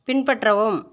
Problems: constant background noise